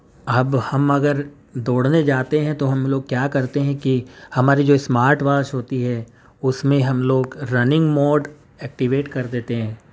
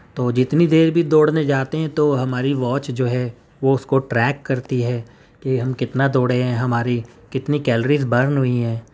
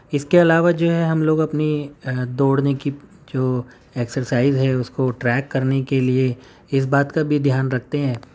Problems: none marked